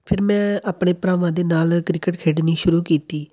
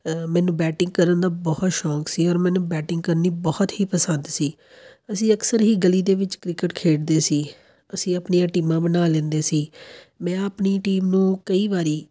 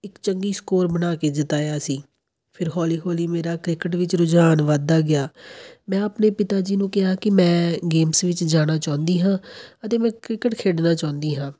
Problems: none marked